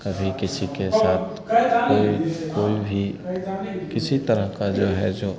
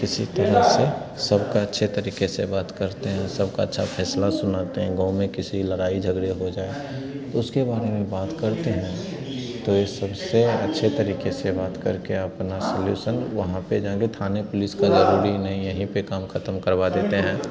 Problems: constant background noise